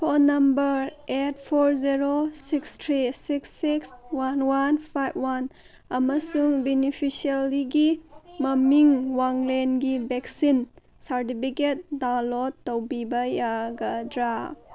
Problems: background sounds at intervals, background conversations at intervals